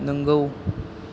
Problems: none marked